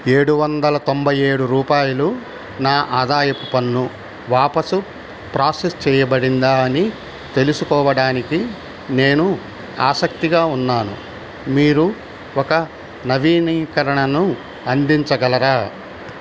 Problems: constant background noise